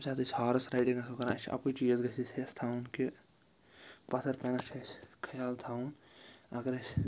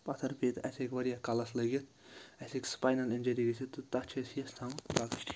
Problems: constant background noise